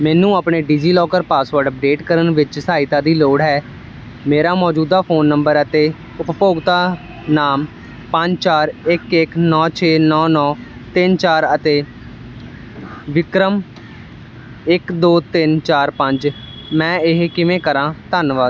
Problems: constant background noise